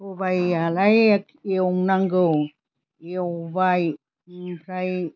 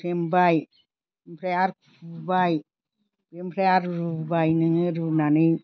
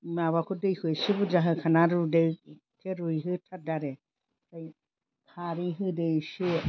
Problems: constant background noise